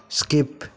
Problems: none marked